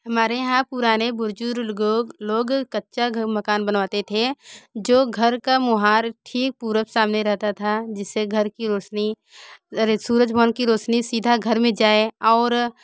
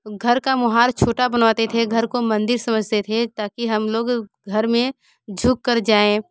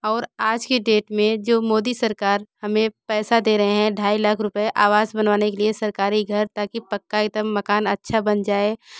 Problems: none marked